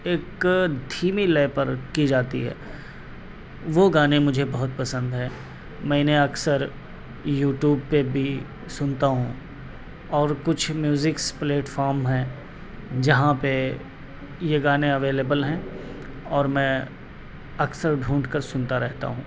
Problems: constant background noise